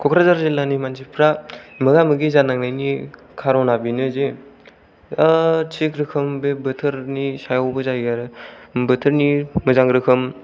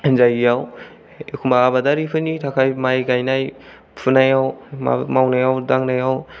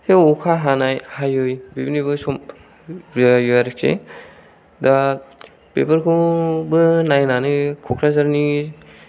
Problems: none marked